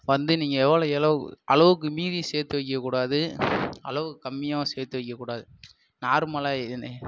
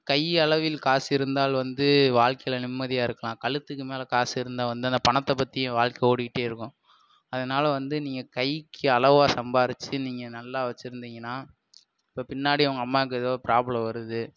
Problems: none marked